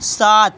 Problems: none marked